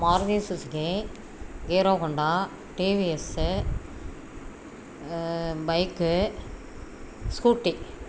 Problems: constant background noise